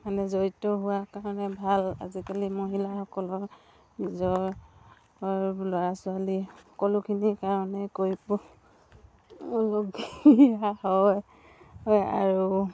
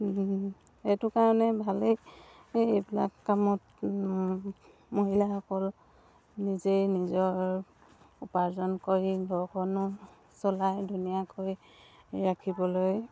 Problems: none marked